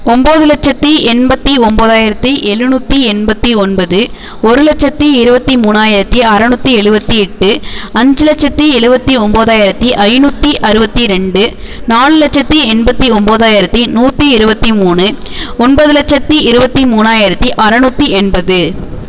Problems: constant background noise